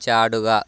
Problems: none marked